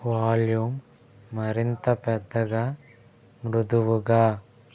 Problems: constant background noise